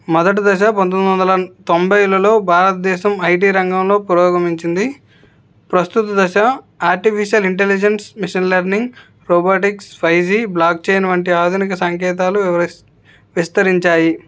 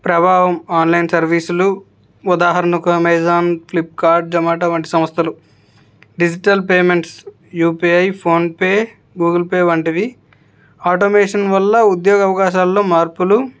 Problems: none marked